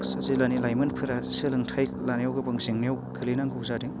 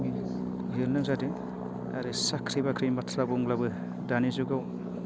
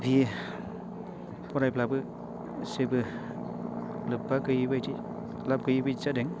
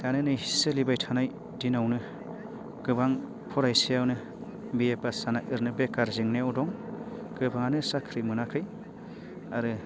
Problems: constant background noise